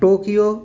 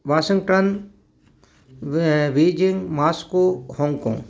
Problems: background sounds at intervals, background conversations at intervals